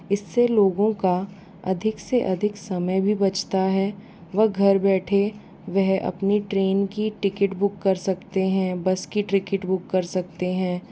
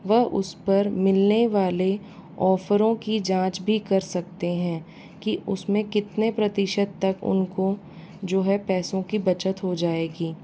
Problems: constant background noise